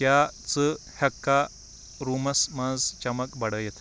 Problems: constant background noise